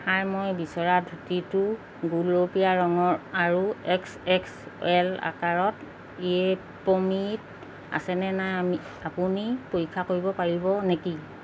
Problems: constant background noise